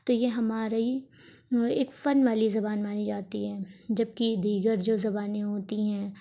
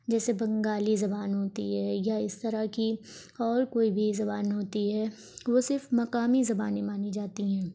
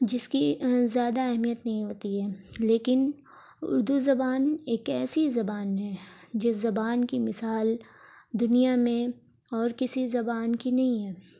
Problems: background sounds at intervals